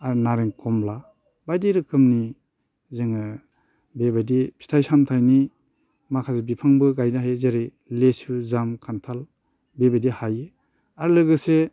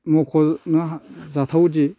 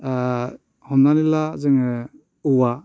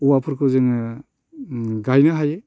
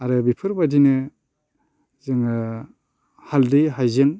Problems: constant background noise